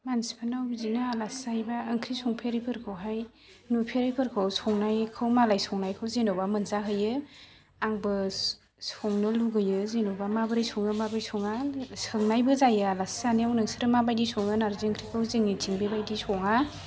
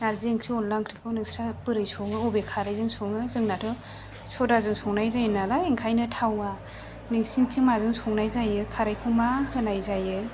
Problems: low volume